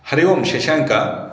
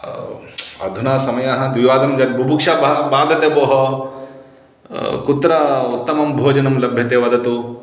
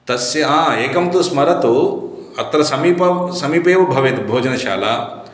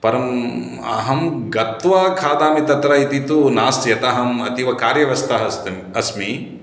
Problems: none marked